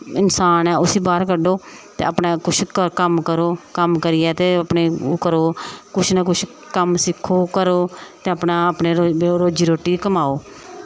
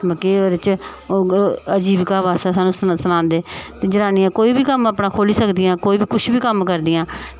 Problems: none marked